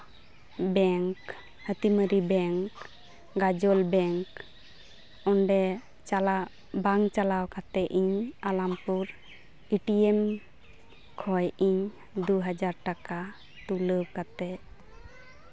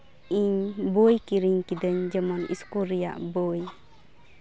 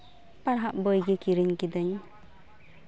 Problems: background sounds at intervals, background conversations at intervals